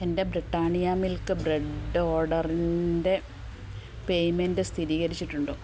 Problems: low volume